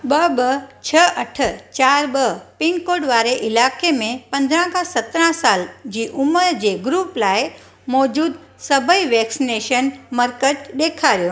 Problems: none marked